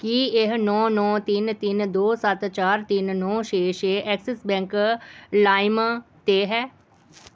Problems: background sounds at intervals